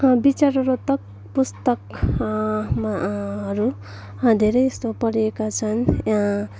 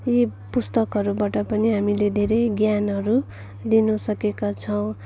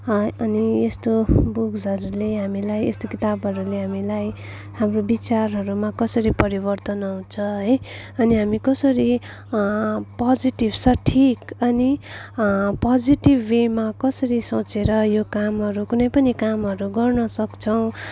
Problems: background sounds at intervals